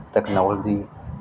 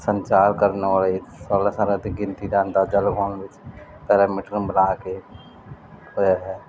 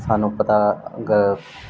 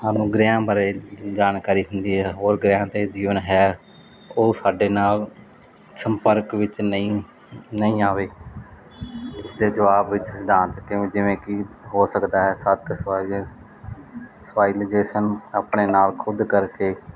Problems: background sounds at intervals